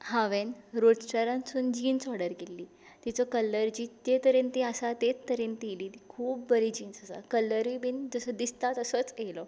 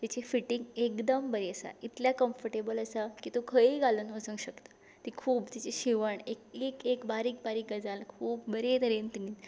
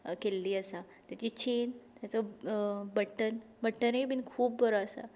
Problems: none marked